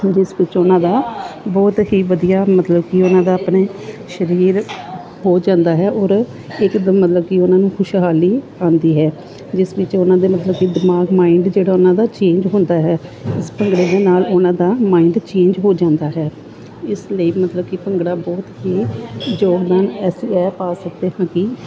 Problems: constant background noise, continuous background conversations